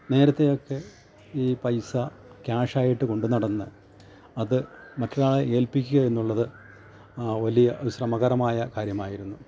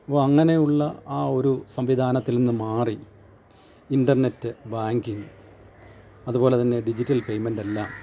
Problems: constant background noise, low volume